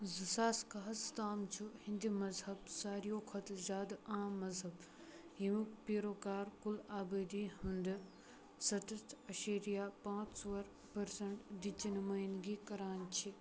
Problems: background sounds at intervals, low volume